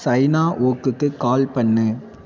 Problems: none marked